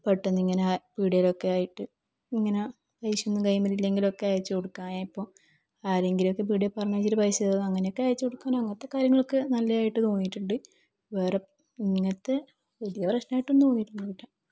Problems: low volume